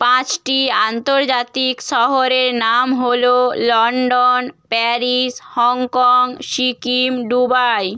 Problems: none marked